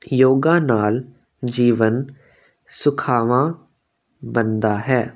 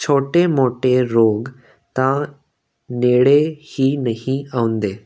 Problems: constant background noise